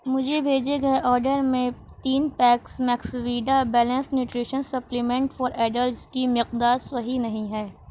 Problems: constant background noise